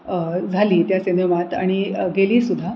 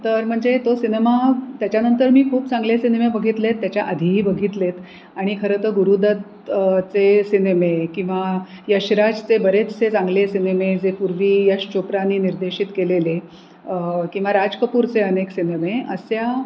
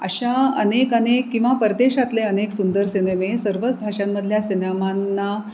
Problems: none marked